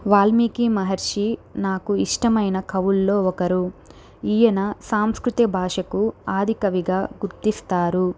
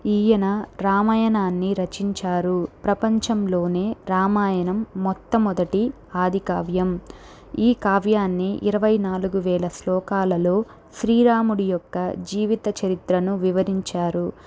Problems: none marked